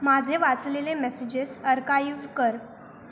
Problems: constant background noise